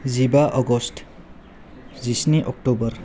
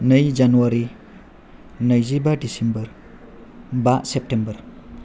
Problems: none marked